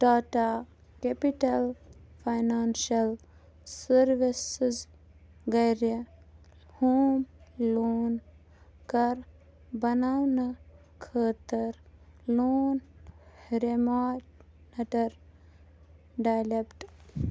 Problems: low volume